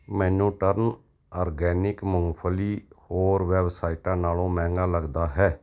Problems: none marked